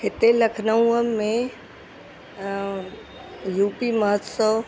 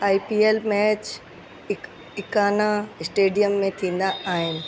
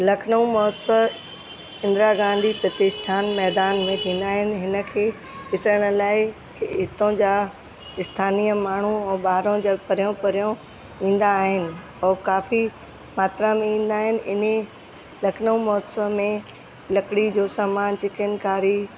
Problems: constant background noise